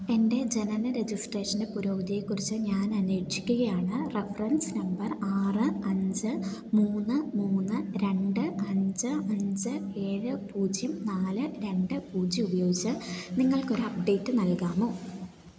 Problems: constant background noise